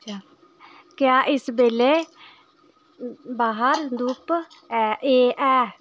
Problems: background sounds at intervals